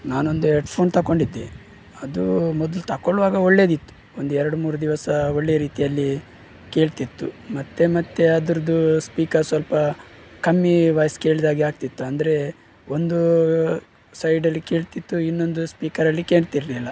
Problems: background sounds at intervals